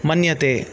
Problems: constant background noise